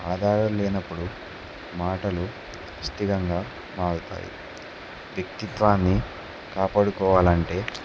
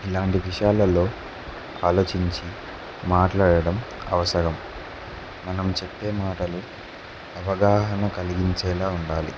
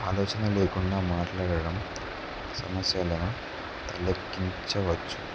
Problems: none marked